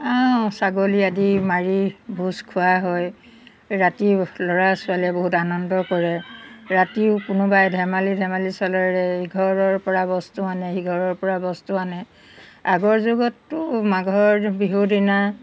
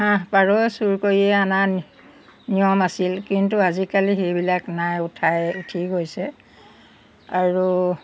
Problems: background sounds at intervals